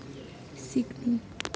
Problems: low volume